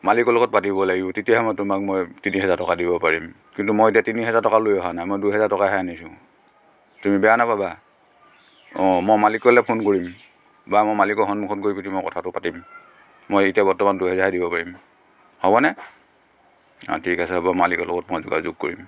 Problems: constant background noise, background conversations at intervals, echo